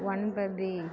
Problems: continuous background conversations